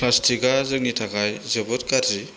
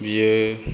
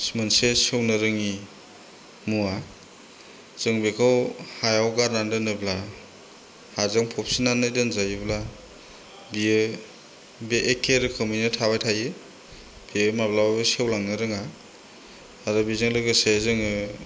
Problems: constant background noise